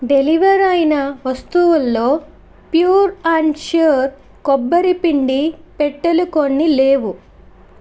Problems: constant background noise